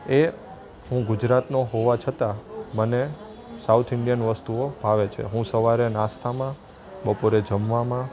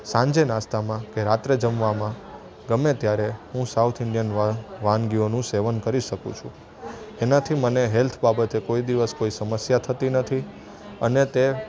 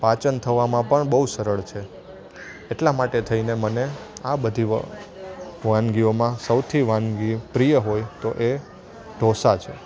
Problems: constant background noise